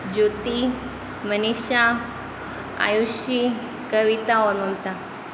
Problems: constant background noise